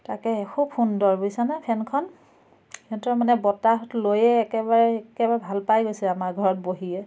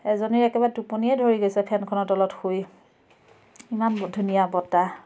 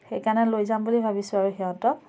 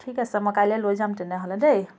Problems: background sounds at intervals, background conversations at intervals